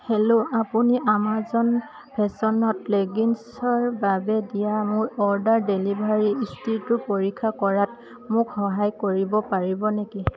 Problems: none marked